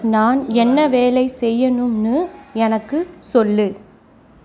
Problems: none marked